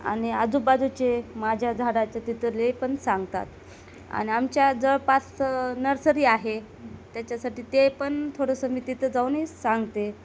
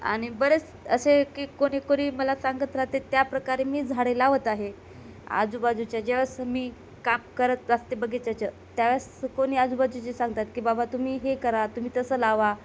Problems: constant background noise